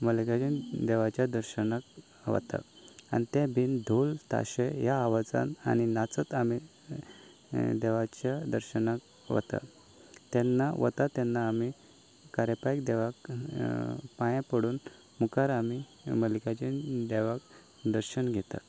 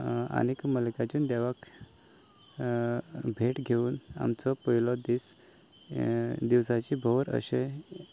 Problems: none marked